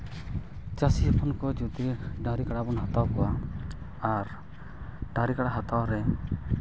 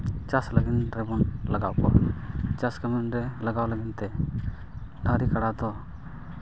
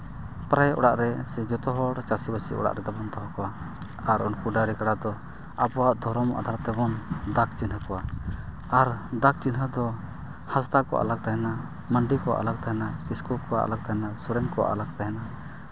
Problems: constant background noise